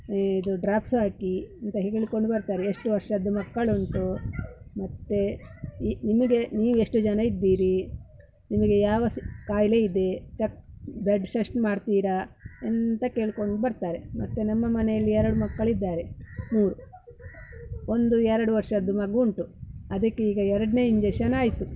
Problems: background sounds at intervals